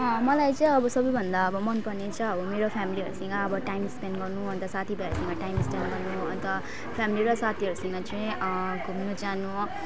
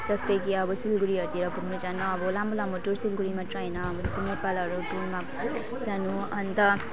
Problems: constant background noise, continuous background conversations